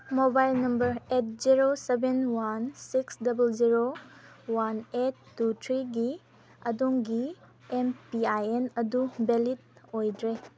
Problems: background conversations at intervals